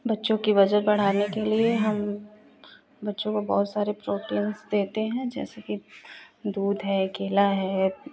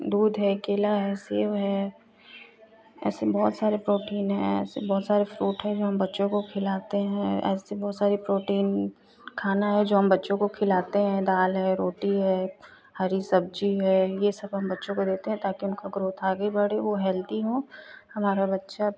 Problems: constant background noise